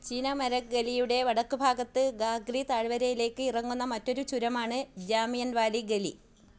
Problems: low volume